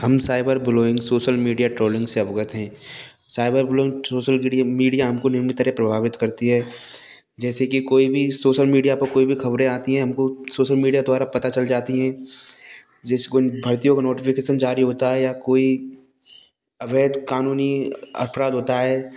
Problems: constant background noise